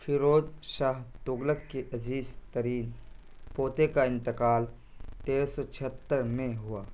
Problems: constant background noise